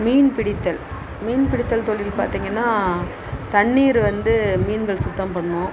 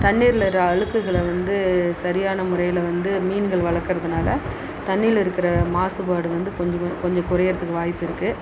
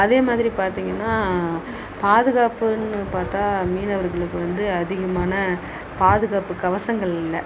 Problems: constant background noise